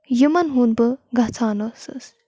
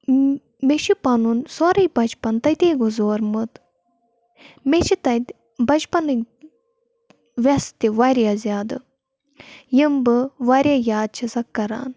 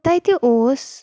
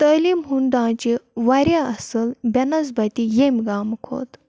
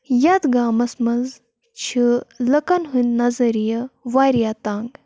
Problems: none marked